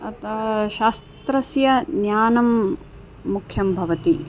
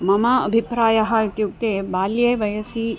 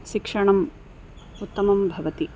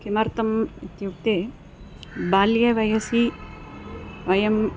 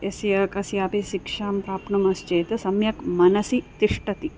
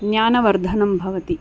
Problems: constant background noise, background conversations at intervals